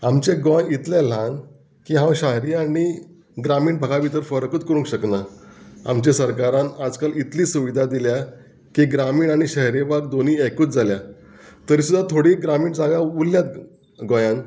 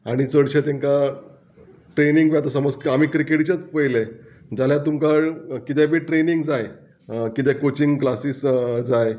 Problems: background sounds at intervals